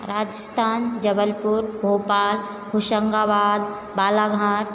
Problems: background sounds at intervals